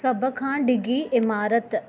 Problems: none marked